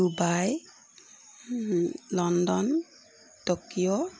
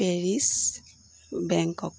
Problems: constant background noise